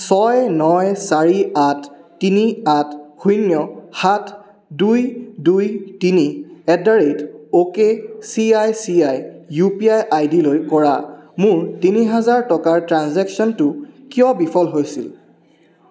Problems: constant background noise